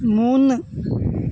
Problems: constant background noise